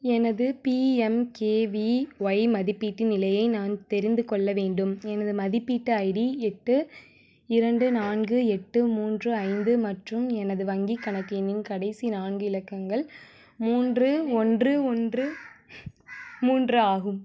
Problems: constant background noise, background conversations at intervals